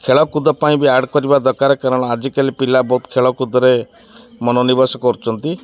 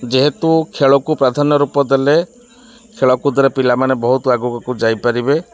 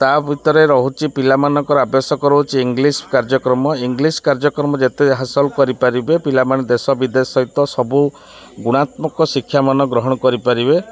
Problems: constant background noise, continuous background conversations